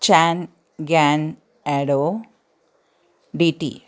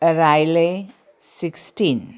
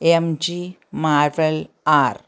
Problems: none marked